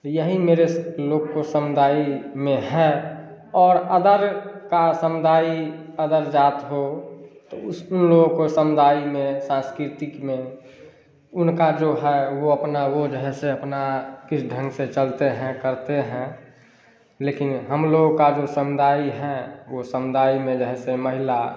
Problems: none marked